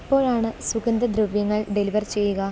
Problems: none marked